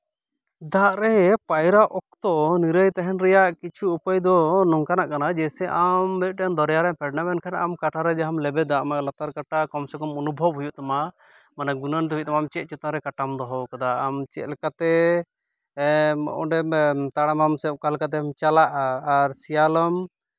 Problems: background sounds at intervals